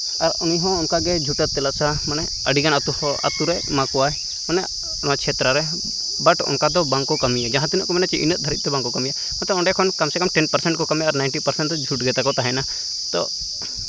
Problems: none marked